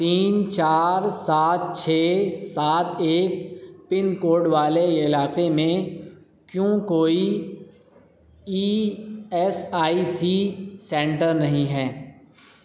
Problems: none marked